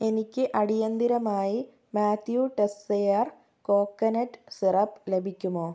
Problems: low volume